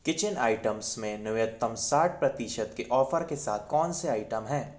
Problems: none marked